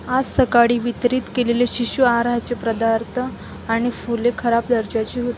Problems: constant background noise